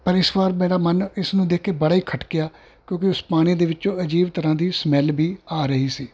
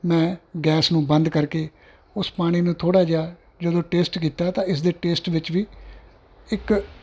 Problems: background sounds at intervals